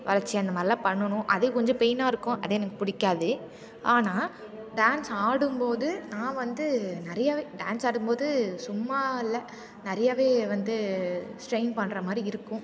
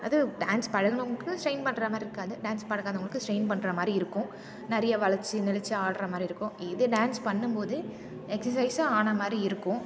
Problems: background sounds at intervals